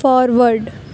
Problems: none marked